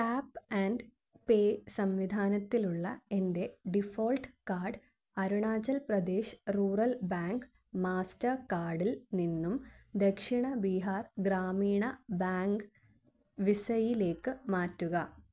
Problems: low volume